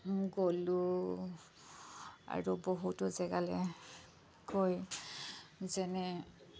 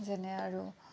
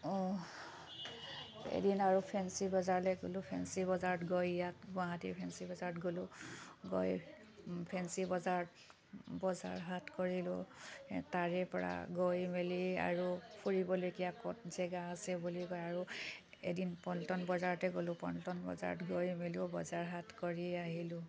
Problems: background sounds at intervals